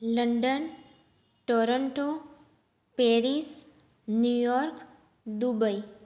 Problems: none marked